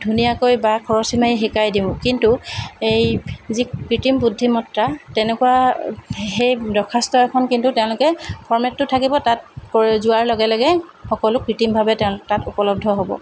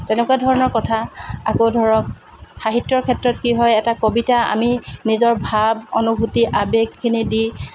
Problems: constant background noise